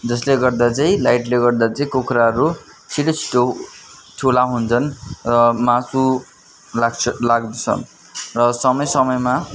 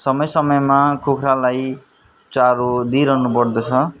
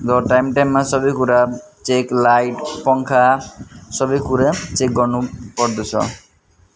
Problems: continuous background conversations